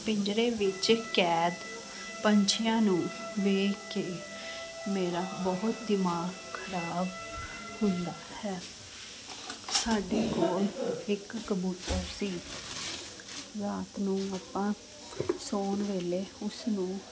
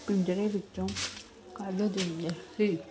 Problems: constant background noise, continuous background conversations